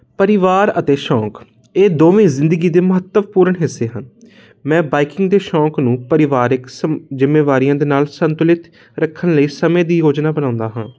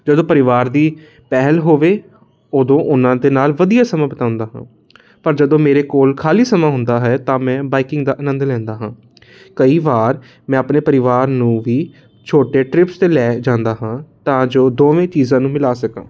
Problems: constant background noise